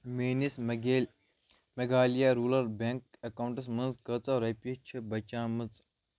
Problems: none marked